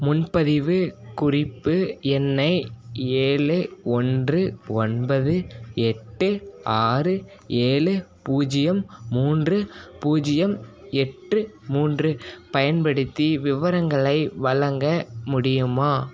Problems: none marked